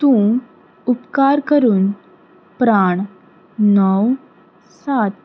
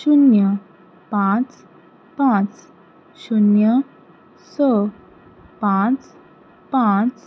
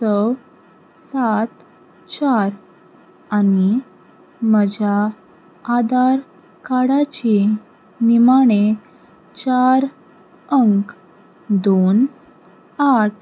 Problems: background sounds at intervals